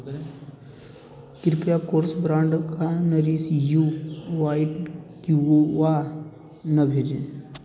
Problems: constant background noise